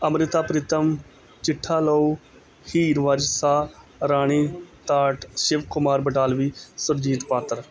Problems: none marked